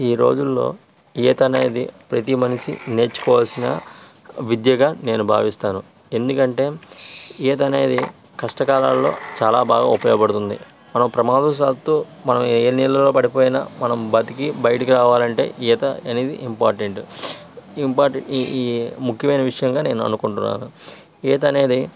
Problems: constant background noise